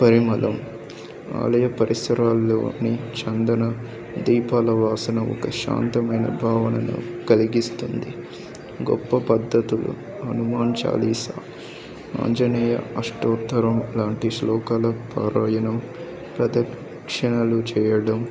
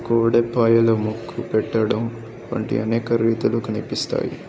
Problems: background conversations at intervals